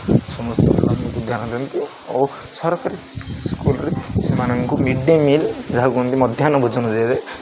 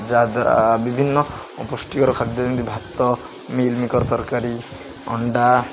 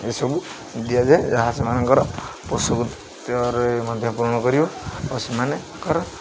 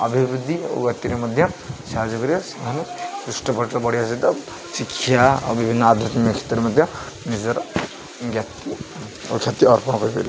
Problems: constant background noise, continuous background conversations